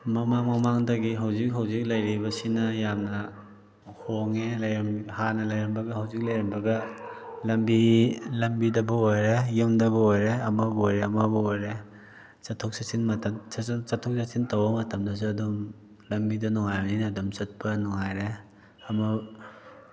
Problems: background sounds at intervals